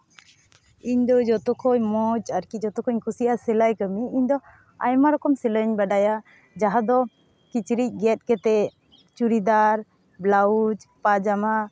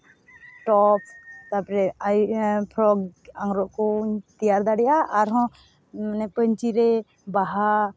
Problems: none marked